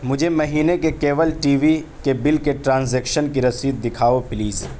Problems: background sounds at intervals